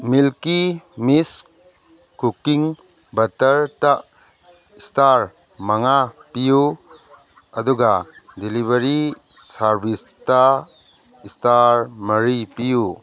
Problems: background conversations at intervals